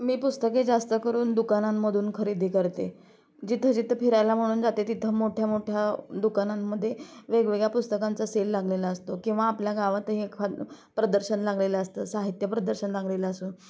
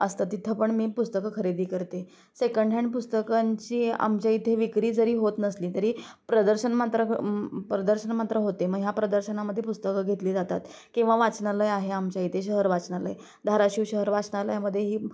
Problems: constant background noise, continuous background conversations